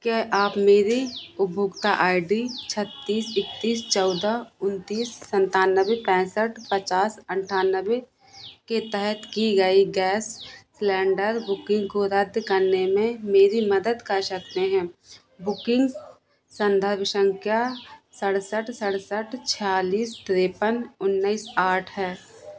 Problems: none marked